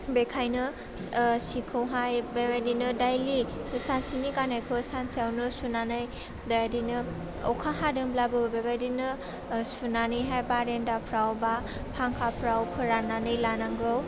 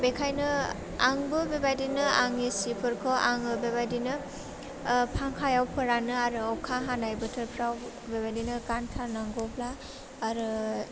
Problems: none marked